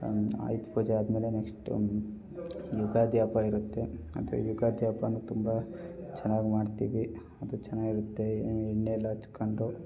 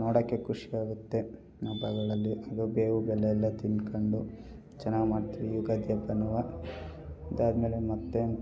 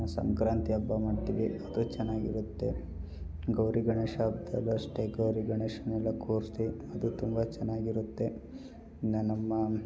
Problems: none marked